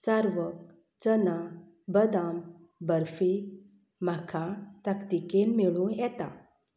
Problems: background sounds at intervals